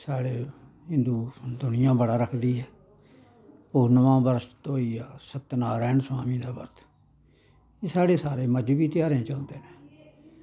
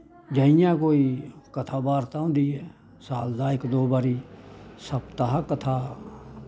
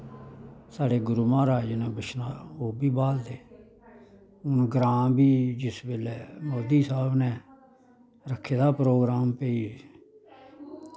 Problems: constant background noise